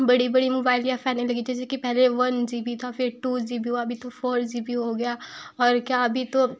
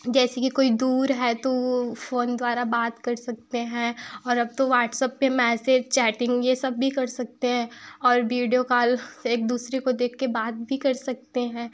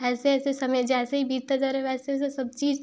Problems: none marked